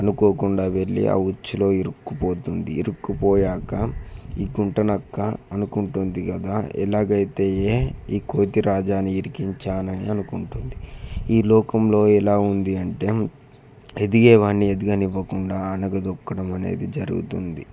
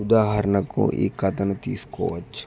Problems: none marked